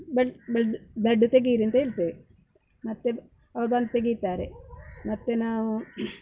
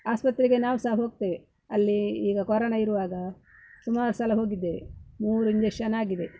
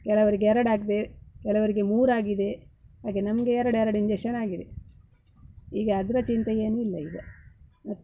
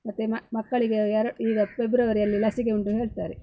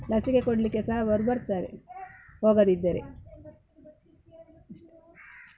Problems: background sounds at intervals